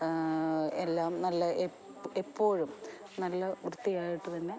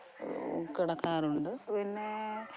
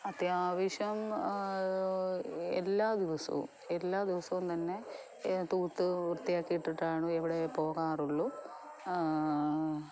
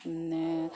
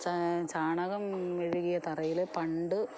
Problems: background sounds at intervals